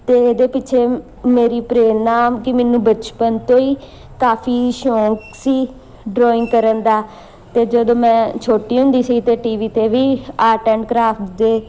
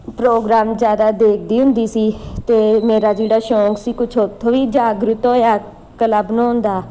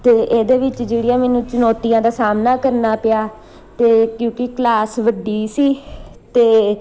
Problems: none marked